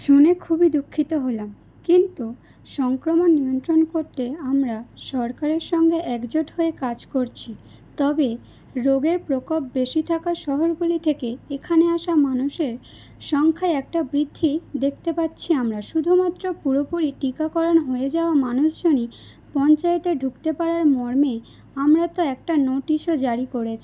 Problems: none marked